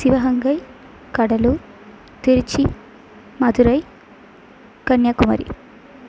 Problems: none marked